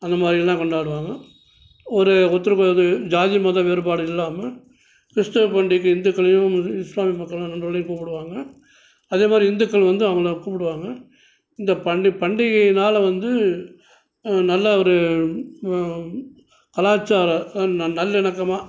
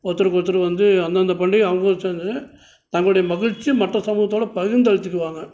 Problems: none marked